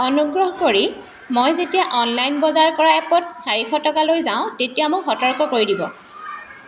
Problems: constant background noise